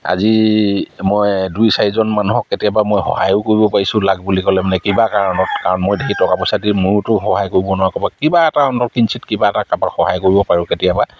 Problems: background sounds at intervals